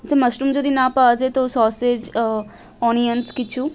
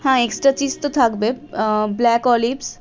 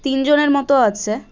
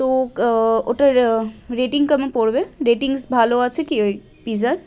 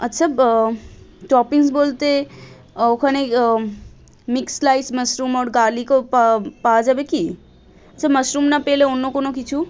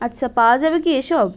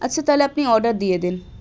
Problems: constant background noise, background conversations at intervals